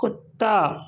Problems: constant background noise